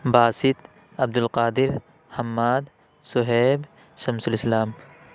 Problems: constant background noise